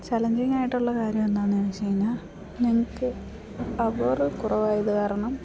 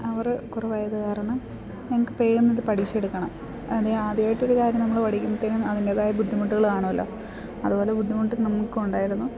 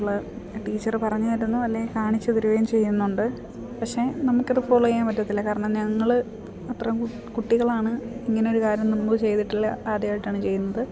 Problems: none marked